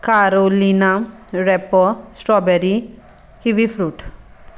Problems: background sounds at intervals